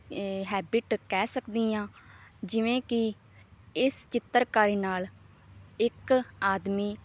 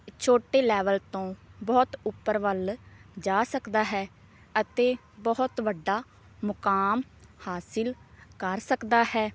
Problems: none marked